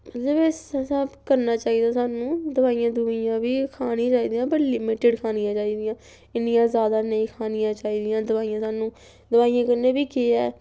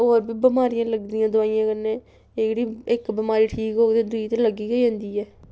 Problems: background sounds at intervals